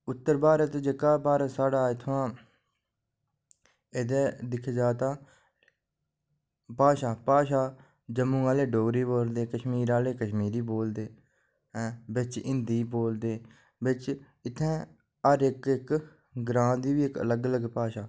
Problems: none marked